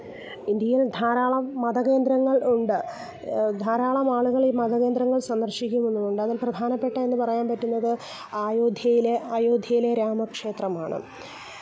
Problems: background sounds at intervals